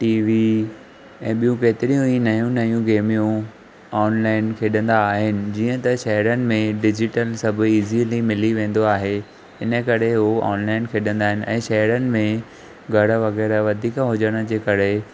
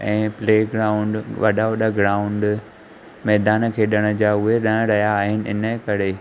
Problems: none marked